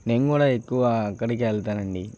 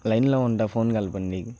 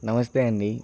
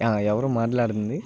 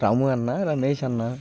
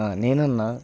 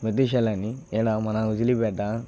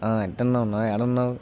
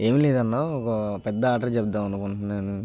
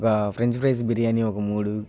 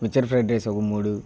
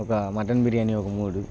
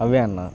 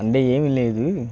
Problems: constant background noise